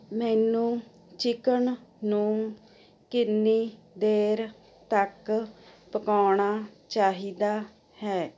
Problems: constant background noise